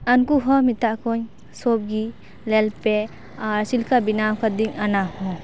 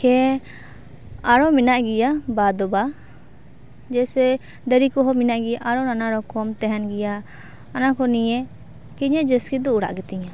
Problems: constant background noise, background conversations at intervals